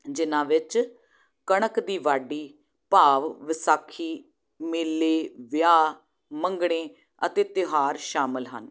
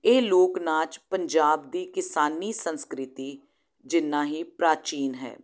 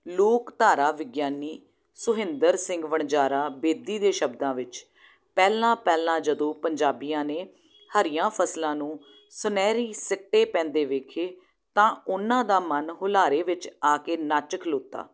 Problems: low volume